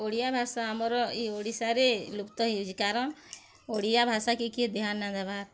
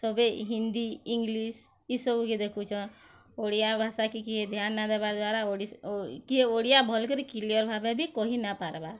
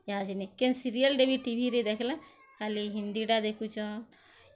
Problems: none marked